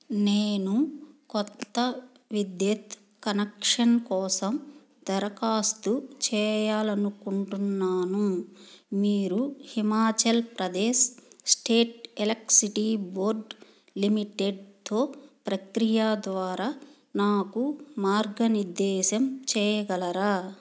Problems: none marked